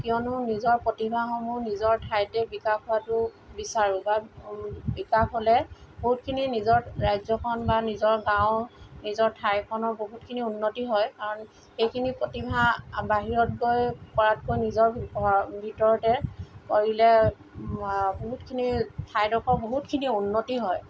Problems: constant background noise